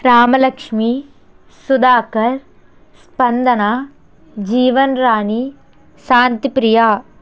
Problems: constant background noise